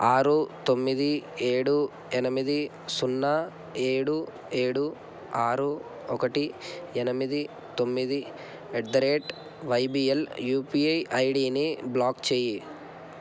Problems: constant background noise